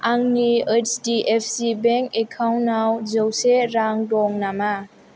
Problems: none marked